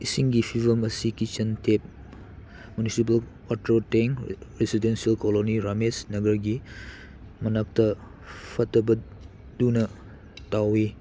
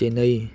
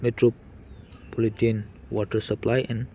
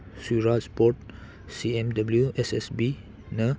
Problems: none marked